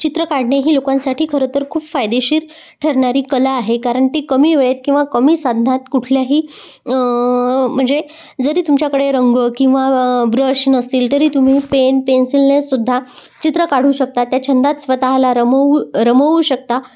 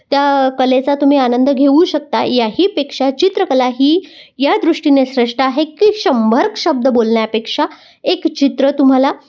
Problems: background sounds at intervals